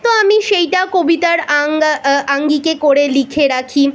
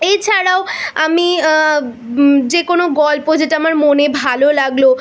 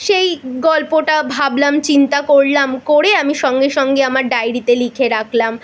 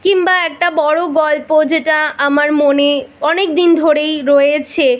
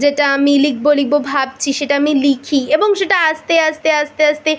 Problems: none marked